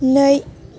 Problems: none marked